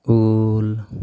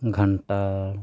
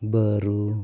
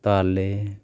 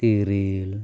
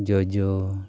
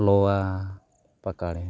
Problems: background sounds at intervals